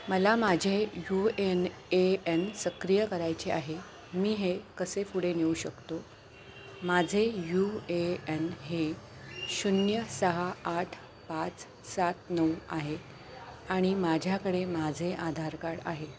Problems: none marked